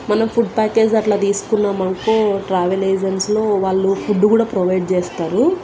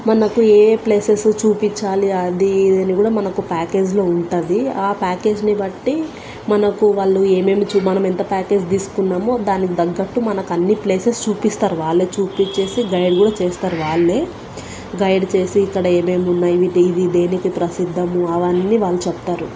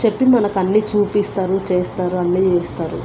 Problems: constant background noise